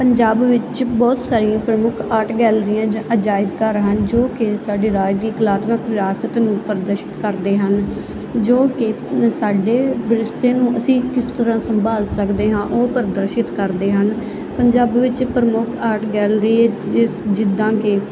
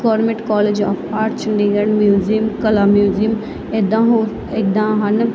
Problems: constant background noise